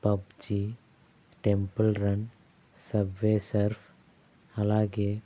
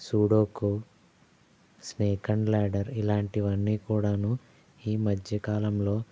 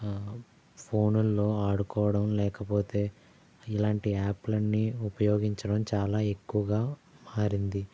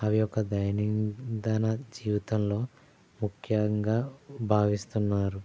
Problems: none marked